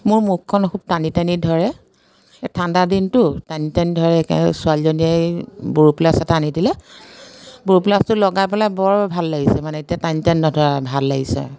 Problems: none marked